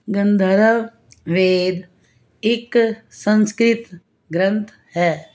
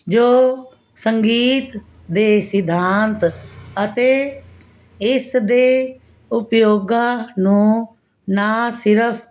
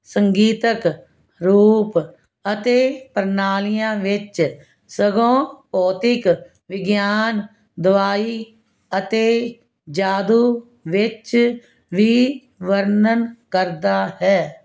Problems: constant background noise